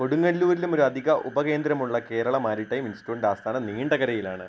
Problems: constant background noise